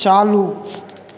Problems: none marked